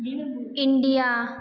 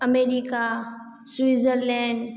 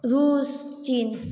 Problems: background sounds at intervals, background conversations at intervals